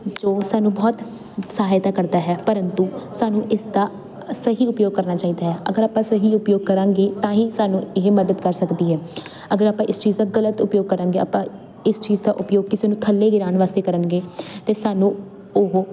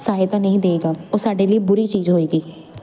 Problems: none marked